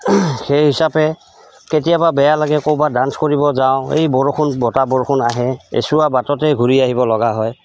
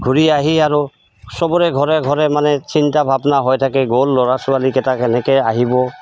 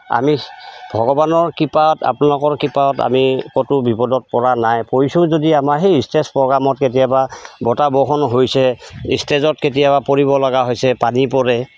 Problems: constant background noise